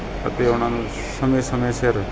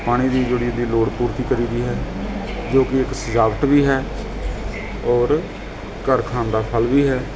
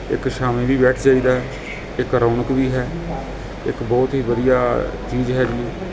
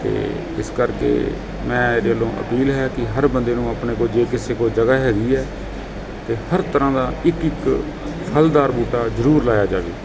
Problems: constant background noise, background conversations at intervals